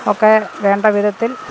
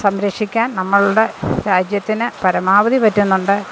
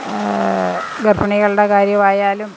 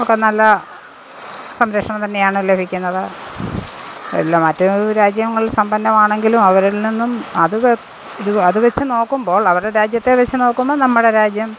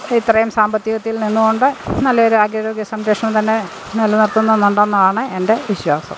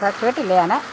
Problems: constant background noise, background conversations at intervals